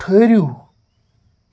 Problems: background sounds at intervals